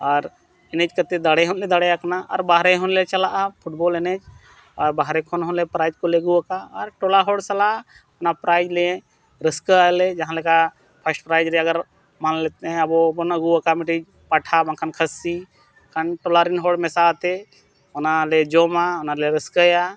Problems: background sounds at intervals